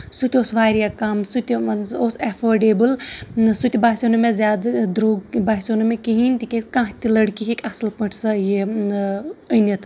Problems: constant background noise